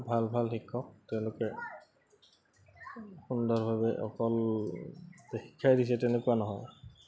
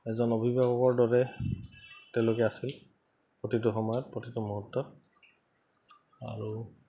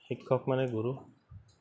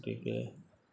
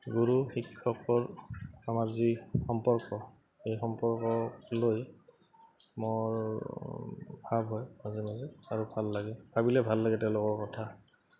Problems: none marked